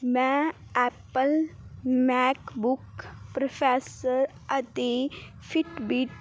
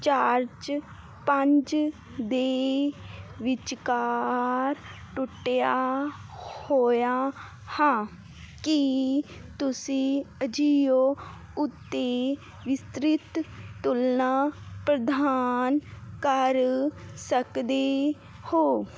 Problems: none marked